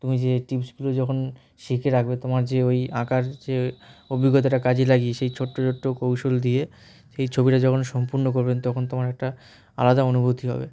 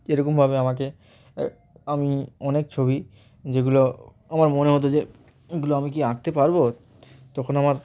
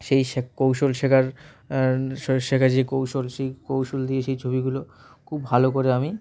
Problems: none marked